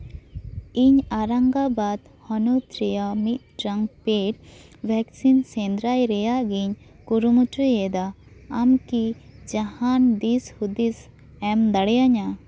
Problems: none marked